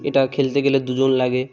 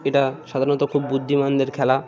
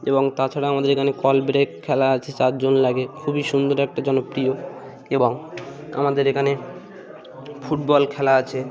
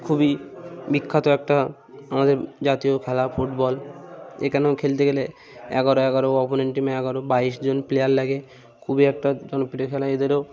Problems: constant background noise